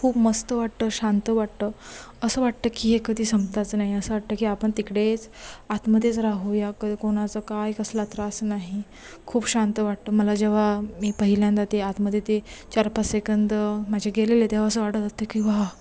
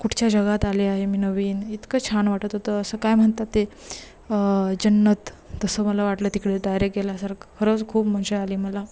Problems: constant background noise